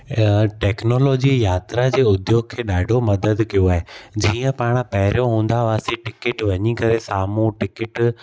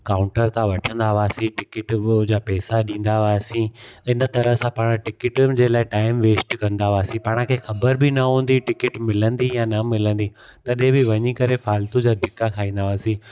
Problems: constant background noise, echo